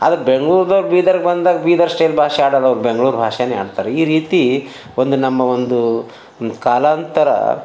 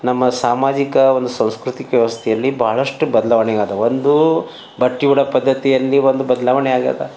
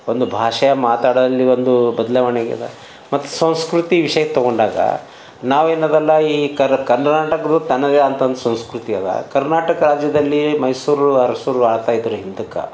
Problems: none marked